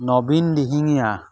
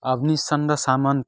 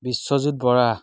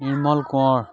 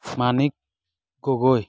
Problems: background sounds at intervals